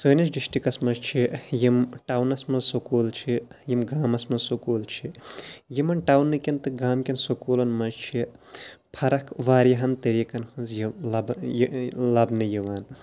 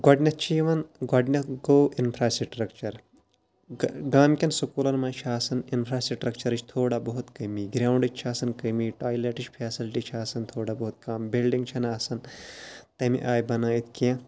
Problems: background sounds at intervals